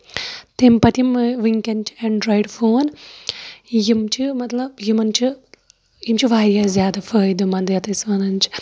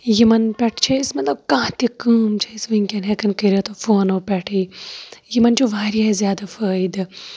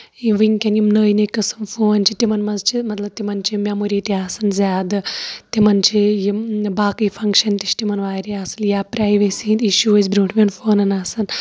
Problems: background conversations at intervals